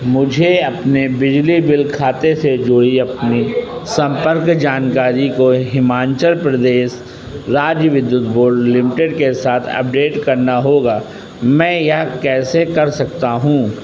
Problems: constant background noise